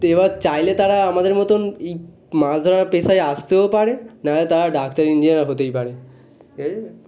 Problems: constant background noise, background conversations at intervals